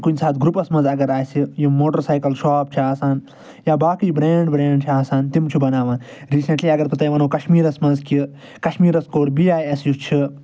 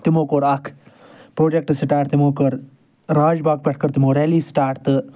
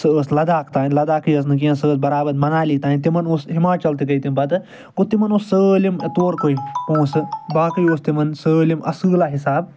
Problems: none marked